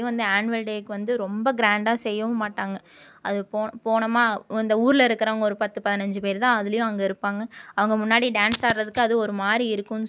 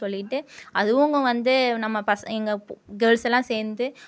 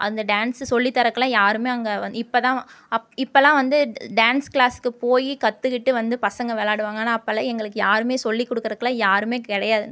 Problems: none marked